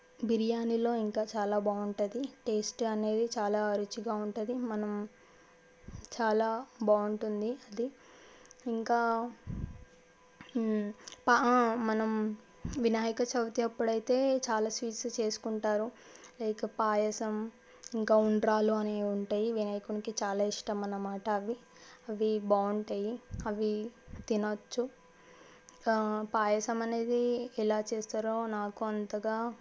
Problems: none marked